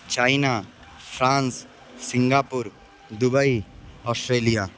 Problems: constant background noise